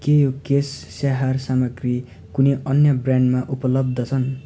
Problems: none marked